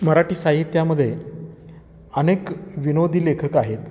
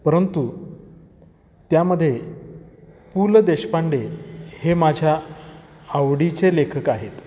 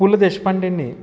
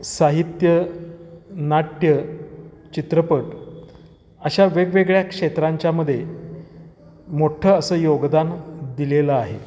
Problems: none marked